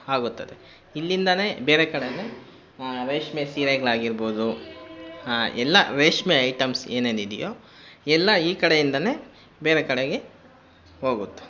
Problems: constant background noise